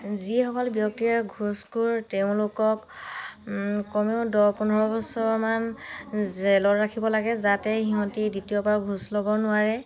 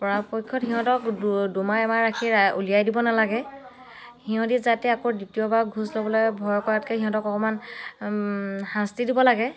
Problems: background sounds at intervals, background conversations at intervals